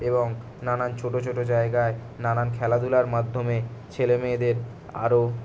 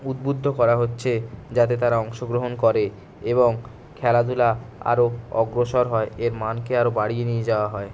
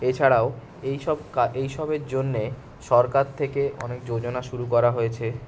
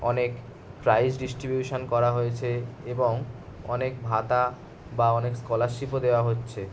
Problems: none marked